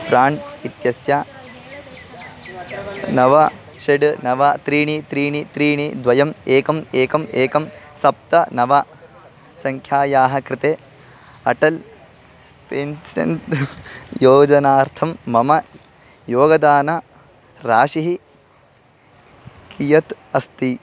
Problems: constant background noise, background conversations at intervals